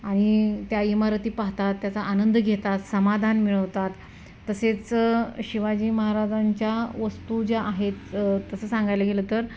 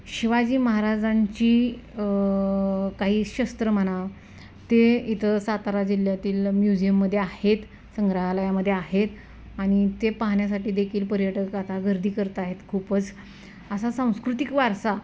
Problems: constant background noise